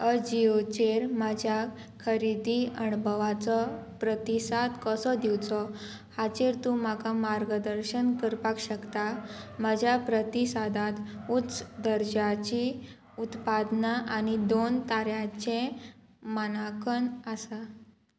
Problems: constant background noise